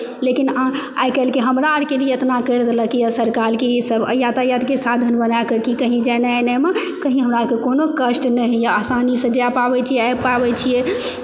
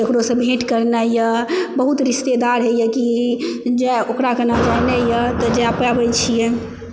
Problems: background sounds at intervals